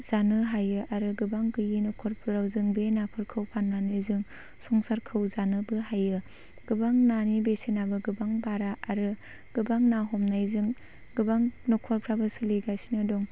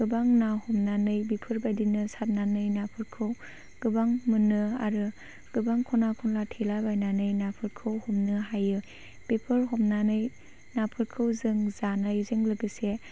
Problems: none marked